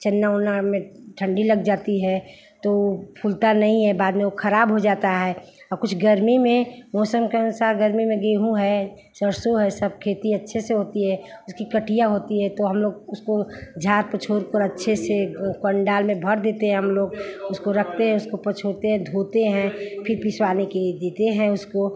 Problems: background sounds at intervals, background conversations at intervals